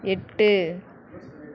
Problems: background conversations at intervals